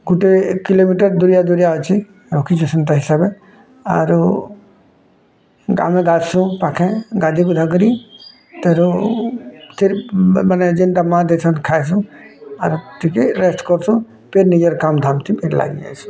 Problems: background sounds at intervals, background conversations at intervals